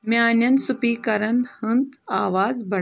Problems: none marked